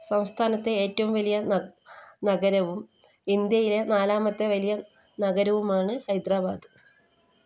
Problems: none marked